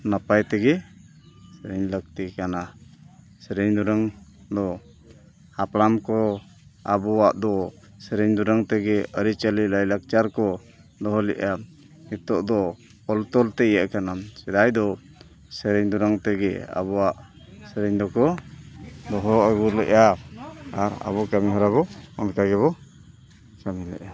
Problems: constant background noise, background conversations at intervals